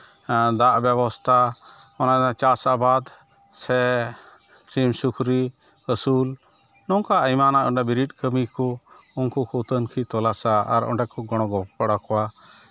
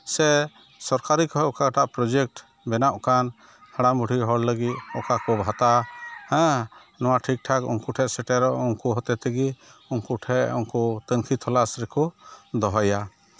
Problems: none marked